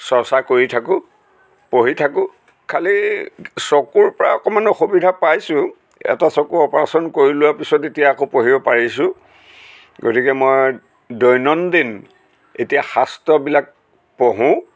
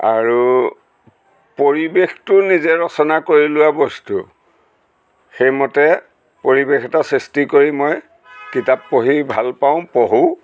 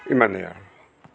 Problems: background sounds at intervals